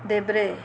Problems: background sounds at intervals